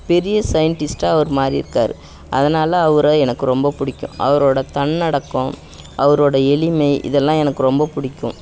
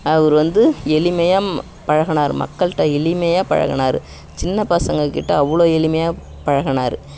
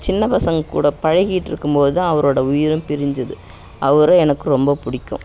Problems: background sounds at intervals